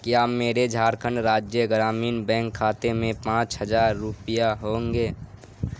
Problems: constant background noise